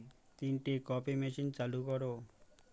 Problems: none marked